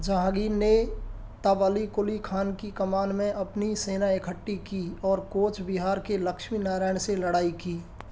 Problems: none marked